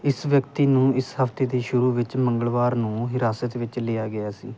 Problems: background sounds at intervals